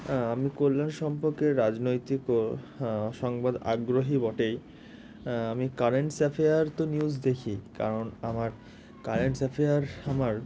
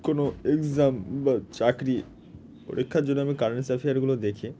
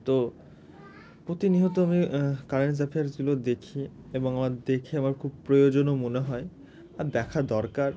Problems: constant background noise